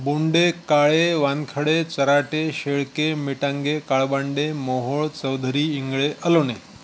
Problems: constant background noise